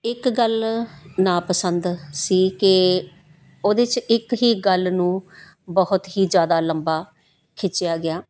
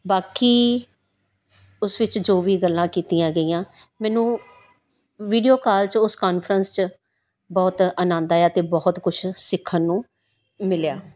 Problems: none marked